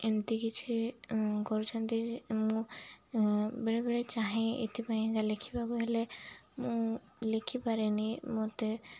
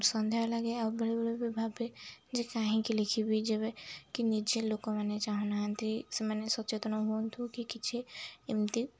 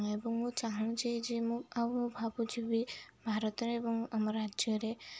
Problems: none marked